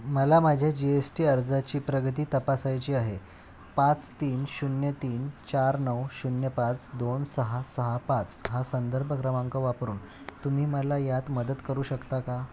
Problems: none marked